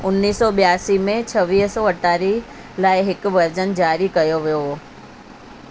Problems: constant background noise